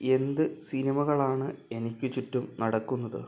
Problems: none marked